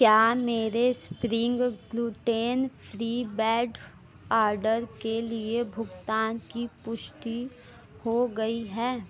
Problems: constant background noise